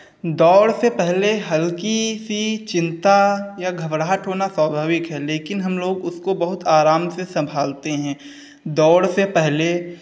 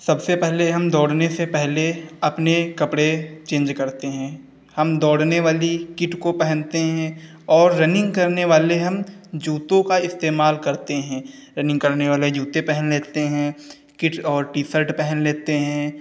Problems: none marked